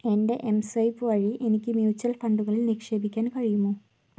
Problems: low volume